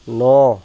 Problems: constant background noise